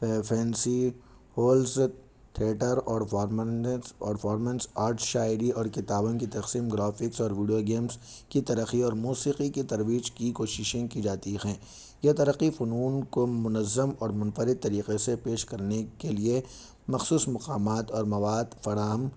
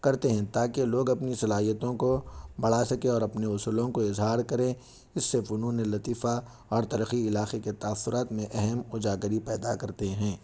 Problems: none marked